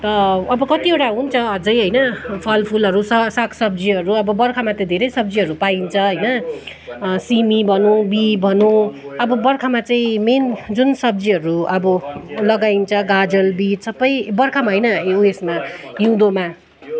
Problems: constant background noise